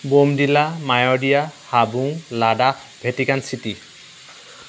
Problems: constant background noise